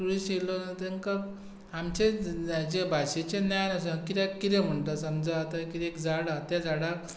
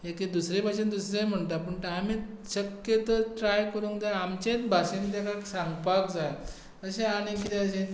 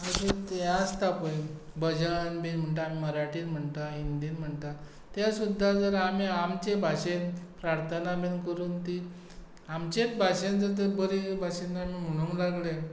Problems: none marked